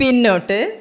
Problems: none marked